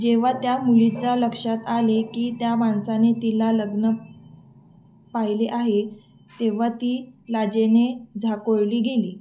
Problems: background sounds at intervals